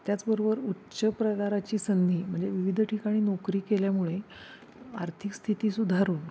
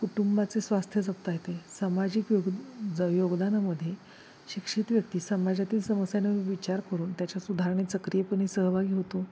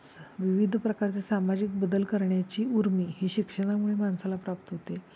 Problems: constant background noise